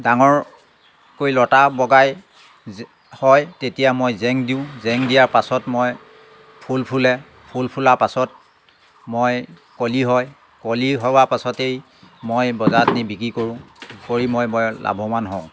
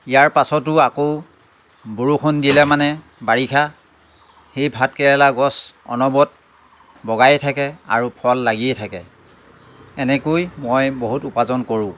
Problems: none marked